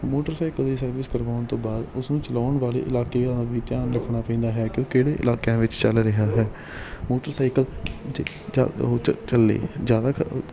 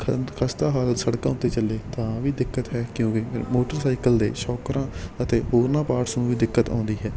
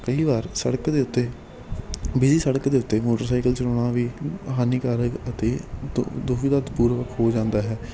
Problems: constant background noise